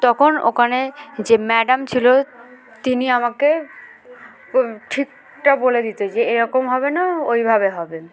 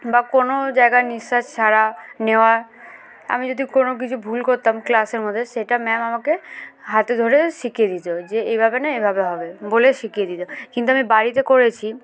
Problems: none marked